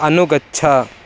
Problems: constant background noise